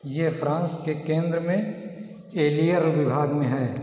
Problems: background sounds at intervals, echo